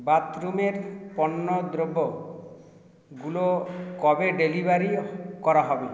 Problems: echo